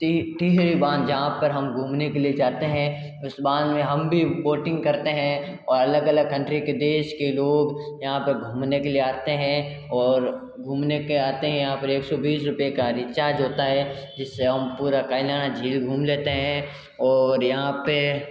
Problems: echo